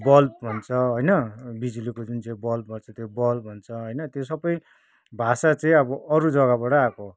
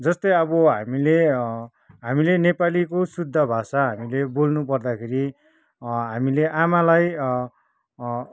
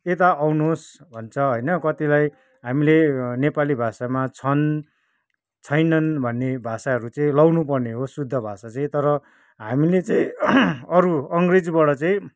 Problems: background conversations at intervals